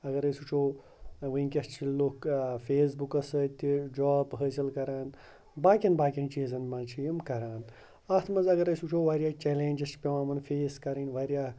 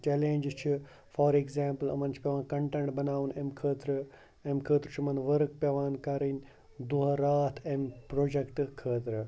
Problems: background sounds at intervals